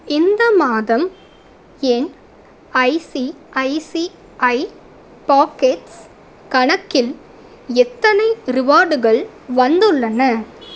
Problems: constant background noise